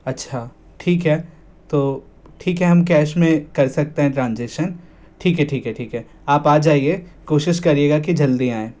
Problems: none marked